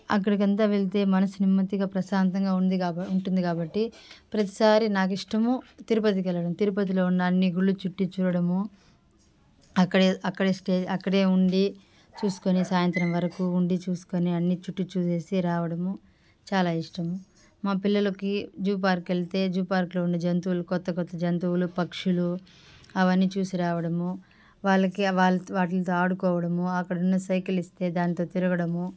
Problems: none marked